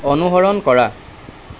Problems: none marked